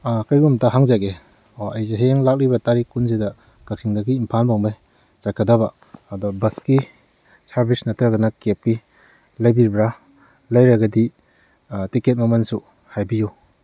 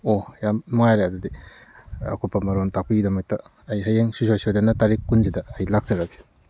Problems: none marked